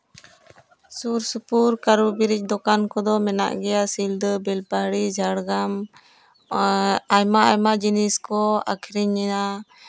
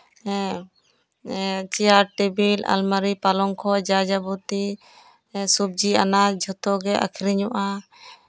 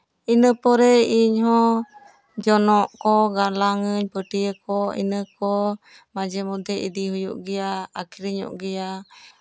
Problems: background conversations at intervals